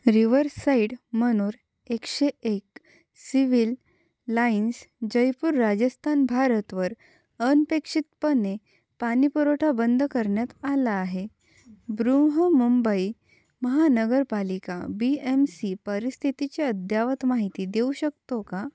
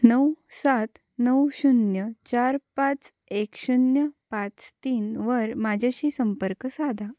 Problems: constant background noise, low volume